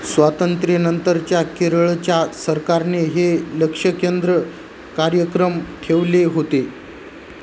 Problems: constant background noise